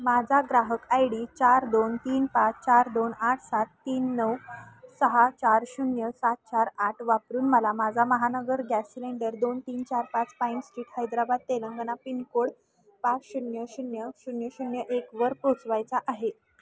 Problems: none marked